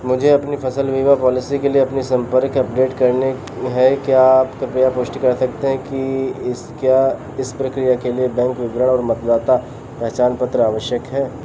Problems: none marked